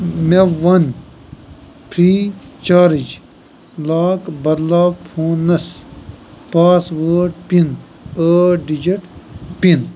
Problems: constant background noise, background conversations at intervals